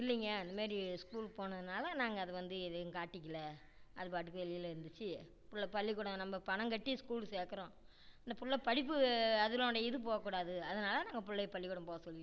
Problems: low volume